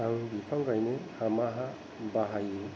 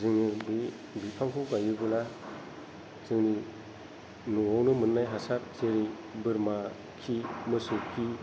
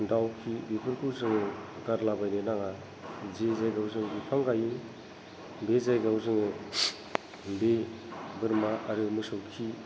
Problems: low volume